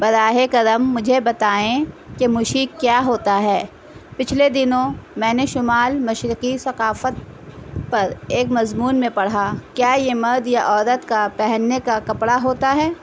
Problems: constant background noise